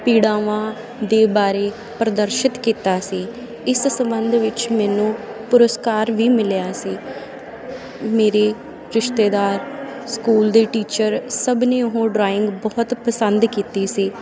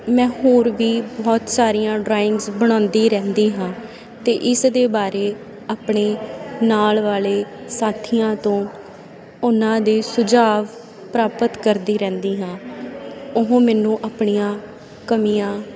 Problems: constant background noise